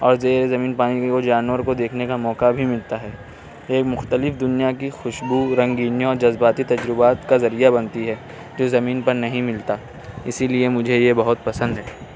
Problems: constant background noise